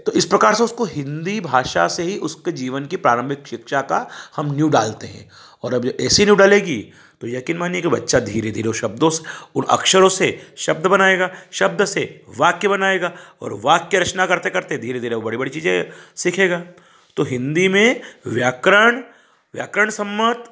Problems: none marked